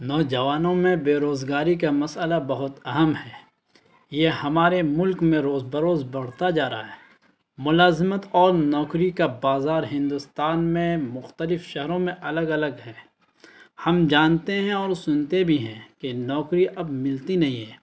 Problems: constant background noise